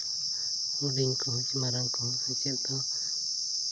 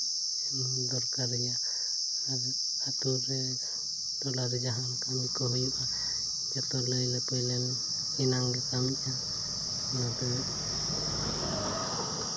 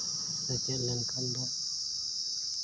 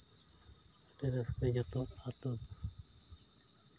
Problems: constant background noise, low volume